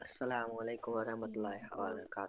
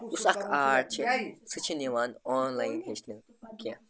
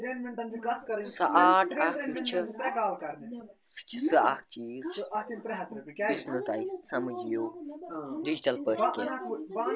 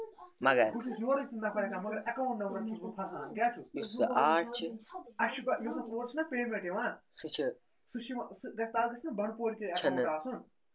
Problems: constant background noise